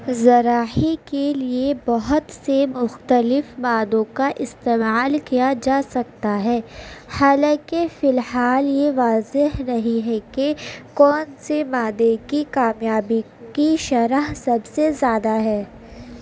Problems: constant background noise